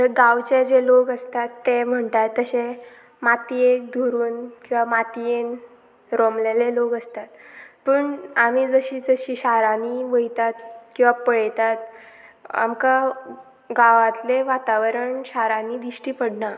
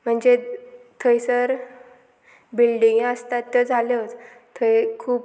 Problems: none marked